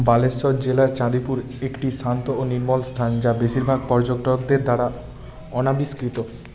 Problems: continuous background conversations